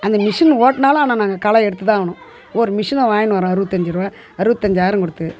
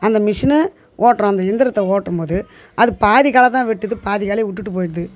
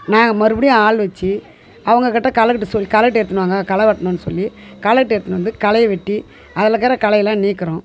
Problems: continuous background conversations